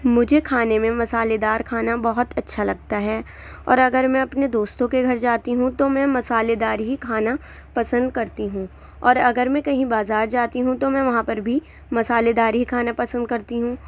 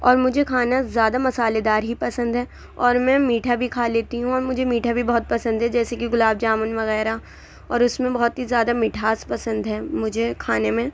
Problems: none marked